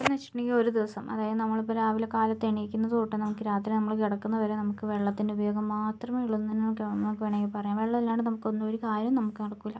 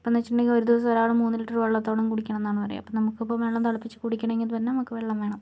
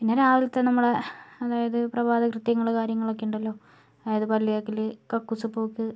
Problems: low volume